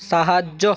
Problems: continuous background conversations